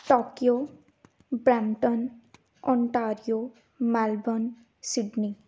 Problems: background sounds at intervals